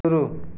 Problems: none marked